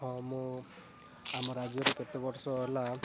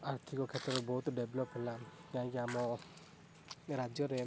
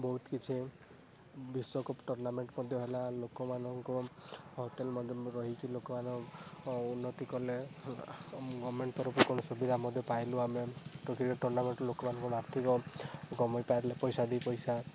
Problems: background sounds at intervals, background conversations at intervals, low volume